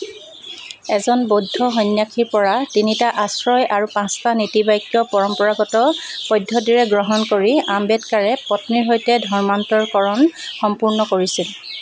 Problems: constant background noise